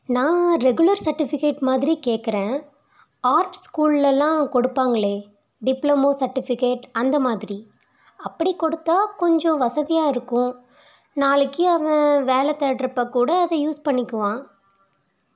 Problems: none marked